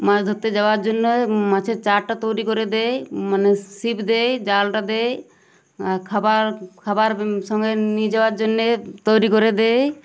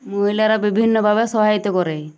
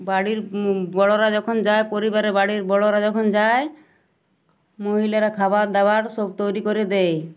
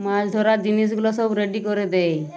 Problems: none marked